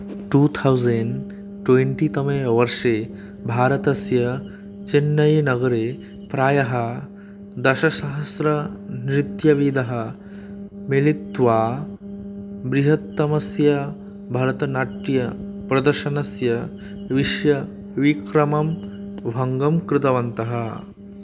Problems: constant background noise